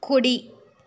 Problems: none marked